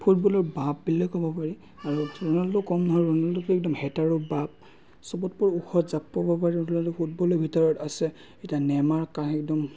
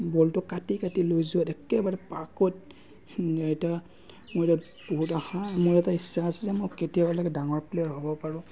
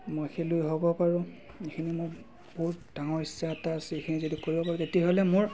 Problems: none marked